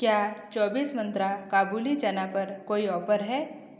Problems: echo